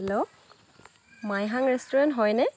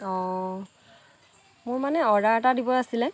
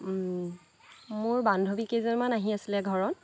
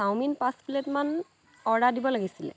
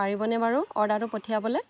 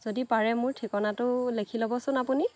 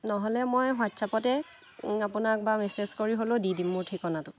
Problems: none marked